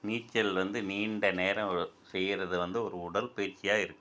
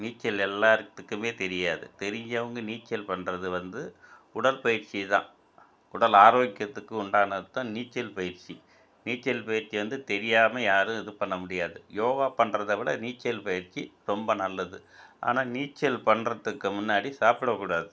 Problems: none marked